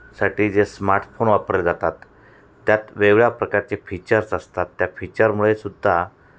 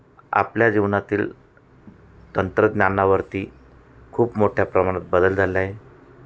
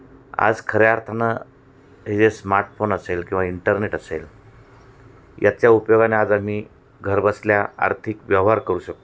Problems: constant background noise, background conversations at intervals, echo